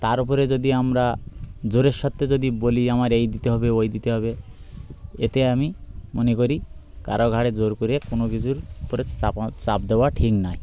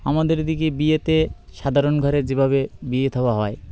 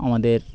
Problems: constant background noise, background conversations at intervals